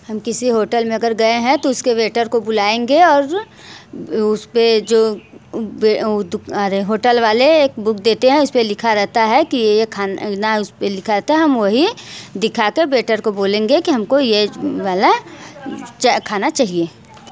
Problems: background sounds at intervals